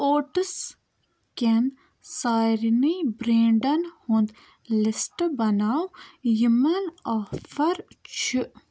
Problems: none marked